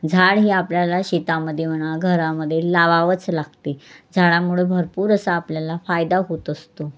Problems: constant background noise